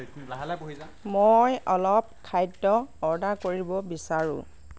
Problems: none marked